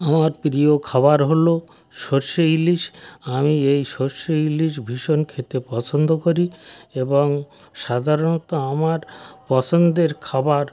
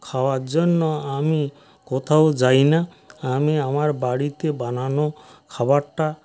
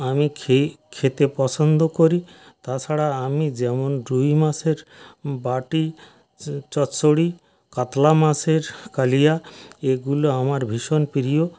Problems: background sounds at intervals, background conversations at intervals